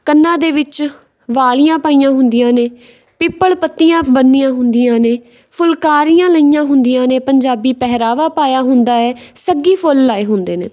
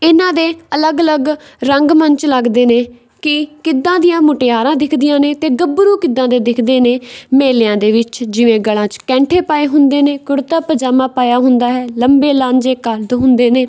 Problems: background sounds at intervals